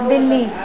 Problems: constant background noise, continuous background conversations